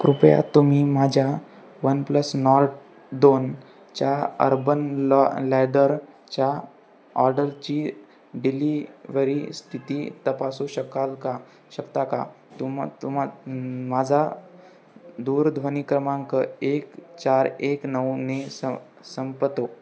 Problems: constant background noise, background conversations at intervals